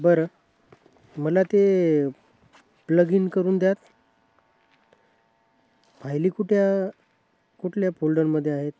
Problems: background sounds at intervals